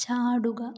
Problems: low volume